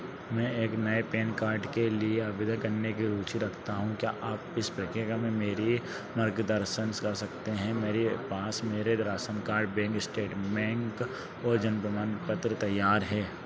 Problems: none marked